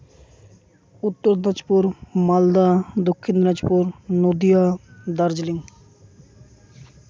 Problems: constant background noise